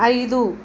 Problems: none marked